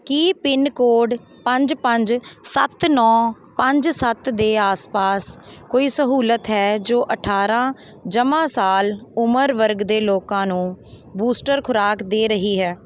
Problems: none marked